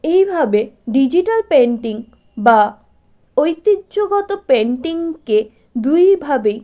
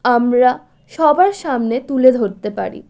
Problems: none marked